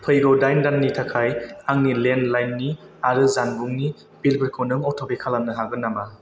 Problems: constant background noise